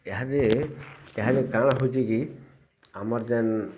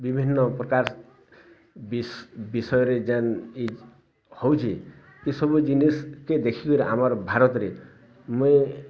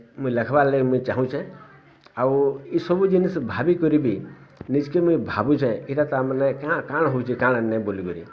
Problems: constant background noise, continuous background conversations